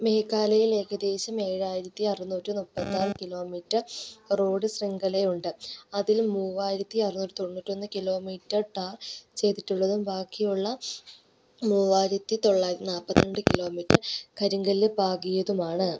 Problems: background sounds at intervals